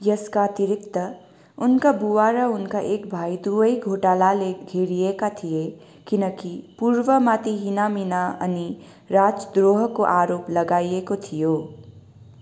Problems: background sounds at intervals